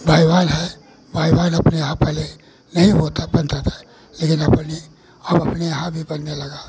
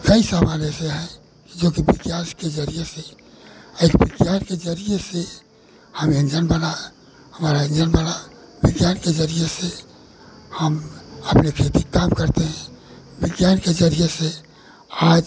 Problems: none marked